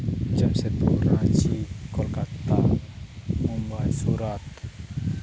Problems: background sounds at intervals